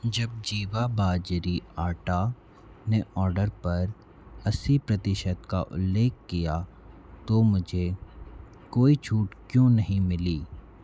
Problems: none marked